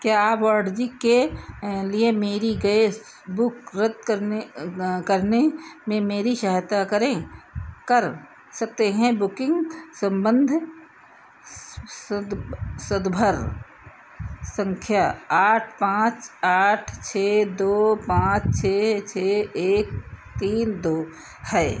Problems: none marked